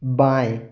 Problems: echo